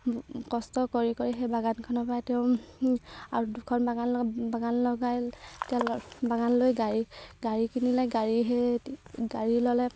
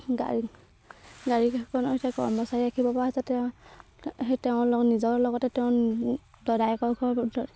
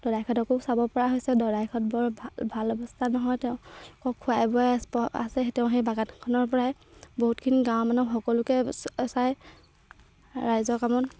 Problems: background sounds at intervals